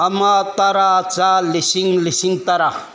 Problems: background sounds at intervals